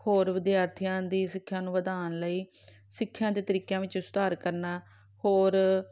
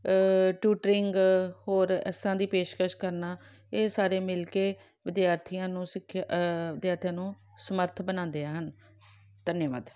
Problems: background sounds at intervals